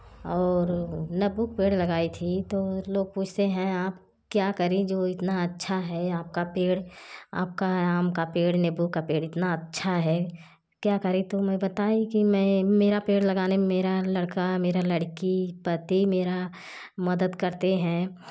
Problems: constant background noise